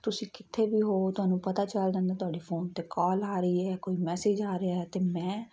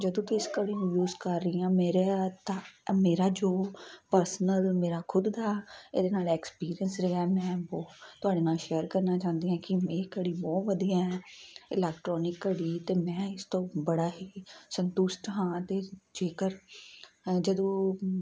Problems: constant background noise